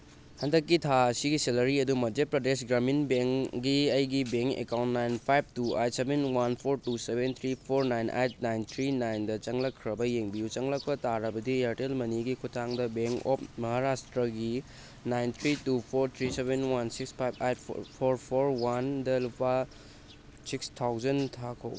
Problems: constant background noise